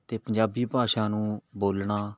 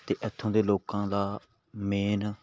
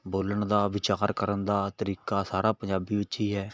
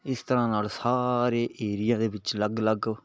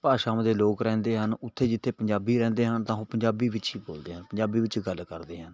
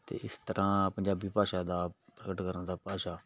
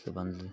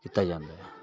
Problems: background sounds at intervals, background conversations at intervals